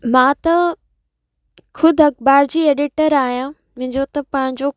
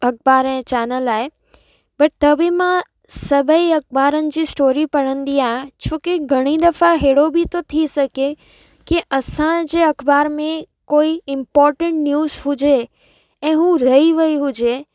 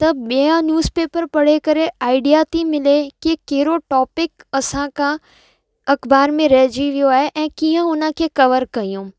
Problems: echo